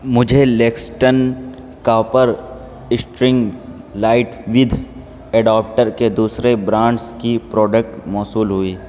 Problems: constant background noise